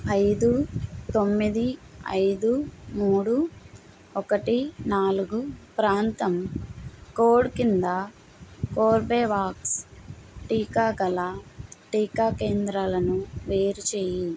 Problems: constant background noise